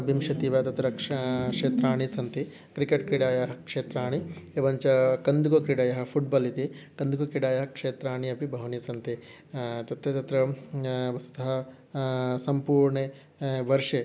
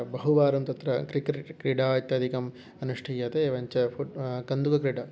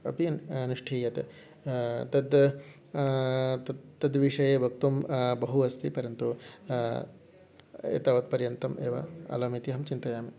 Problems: none marked